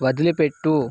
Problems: constant background noise